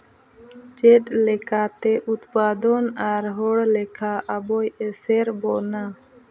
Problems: constant background noise